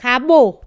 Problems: none marked